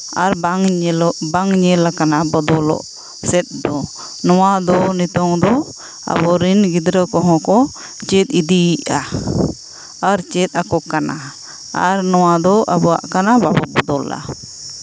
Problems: background sounds at intervals